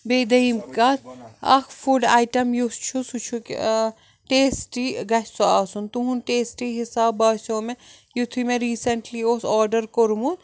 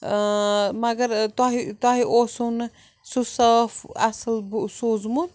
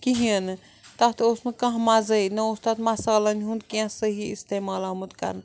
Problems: background sounds at intervals